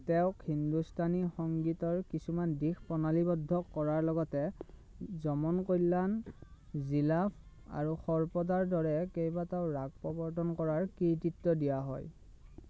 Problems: none marked